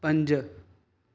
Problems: none marked